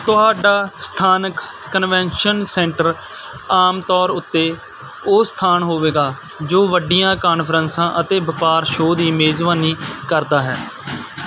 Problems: constant background noise